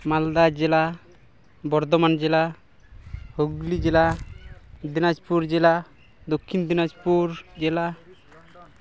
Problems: background sounds at intervals, continuous background conversations